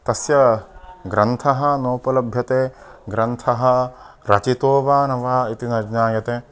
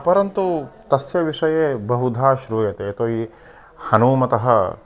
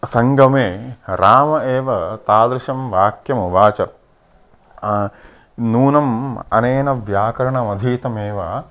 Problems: background conversations at intervals